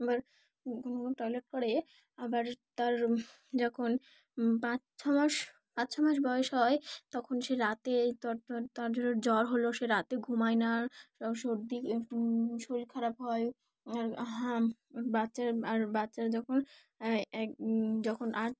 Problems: background sounds at intervals